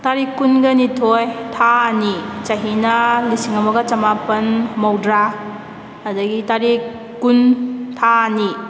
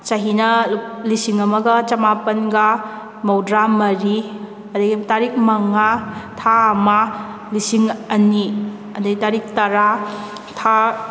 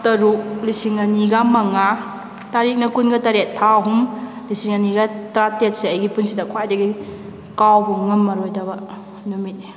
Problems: background sounds at intervals